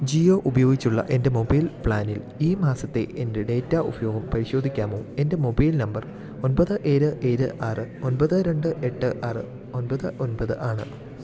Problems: none marked